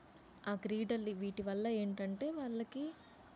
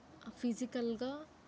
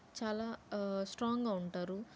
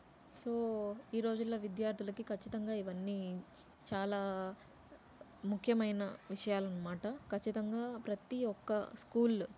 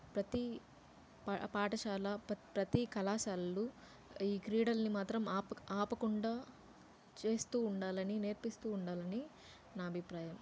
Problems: low volume